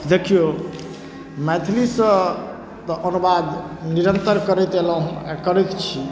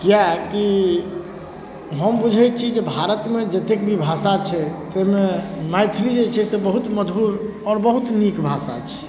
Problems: none marked